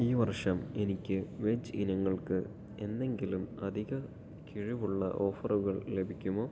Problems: low volume